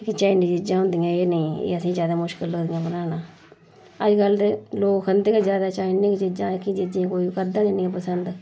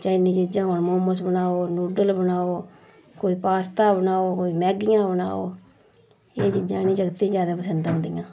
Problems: none marked